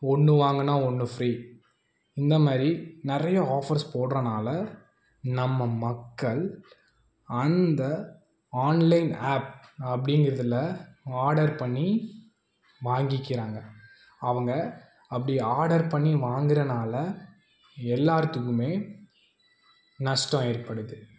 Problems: none marked